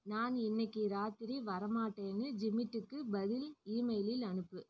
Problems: low volume